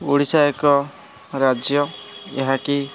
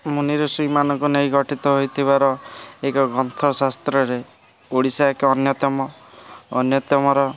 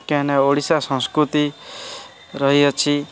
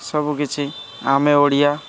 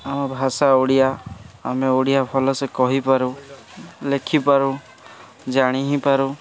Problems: constant background noise, continuous background conversations